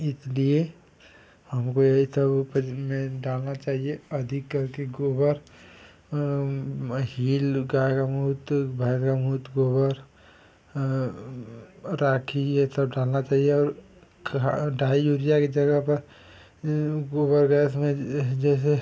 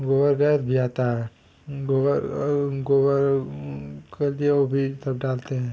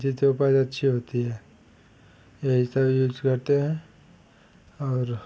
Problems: constant background noise